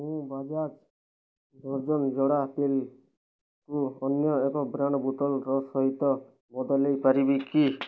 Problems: none marked